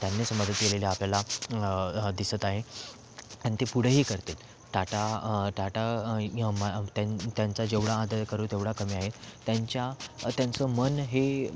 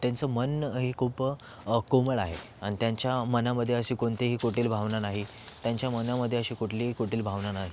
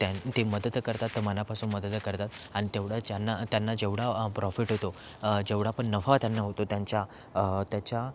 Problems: constant background noise